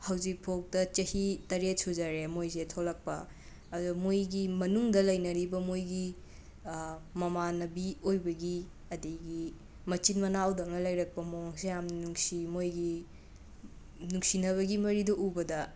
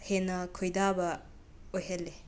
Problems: background sounds at intervals, background conversations at intervals